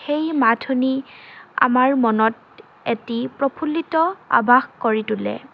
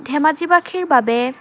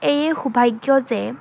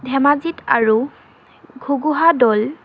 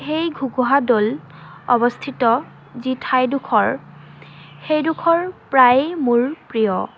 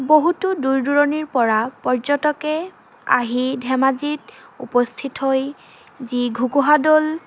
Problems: constant background noise, background conversations at intervals